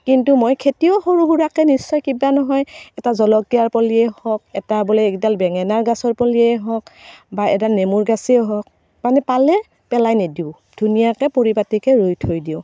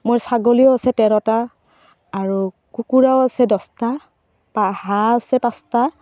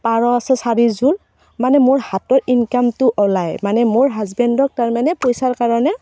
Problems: none marked